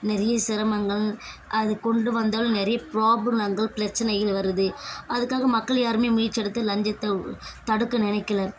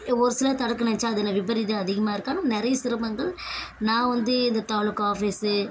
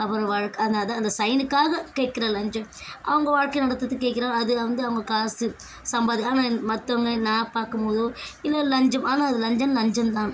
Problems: constant background noise